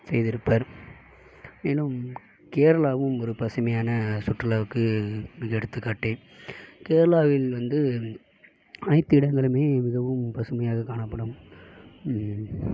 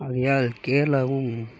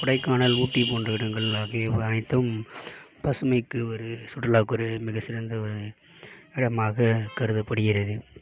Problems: background sounds at intervals